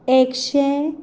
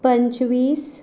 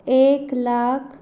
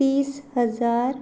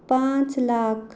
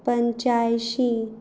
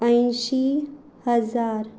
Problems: background sounds at intervals